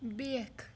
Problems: none marked